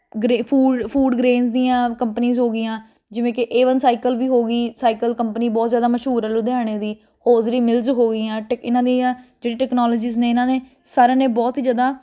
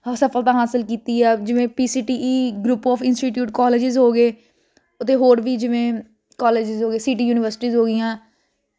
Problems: constant background noise